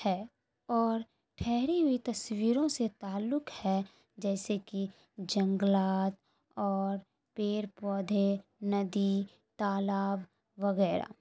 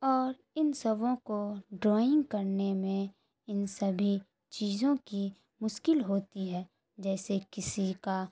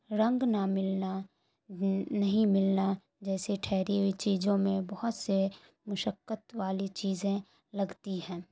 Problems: constant background noise, low volume